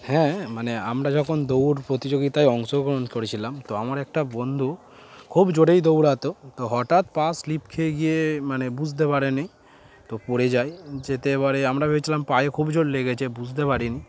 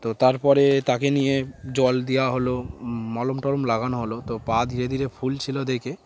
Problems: constant background noise, background conversations at intervals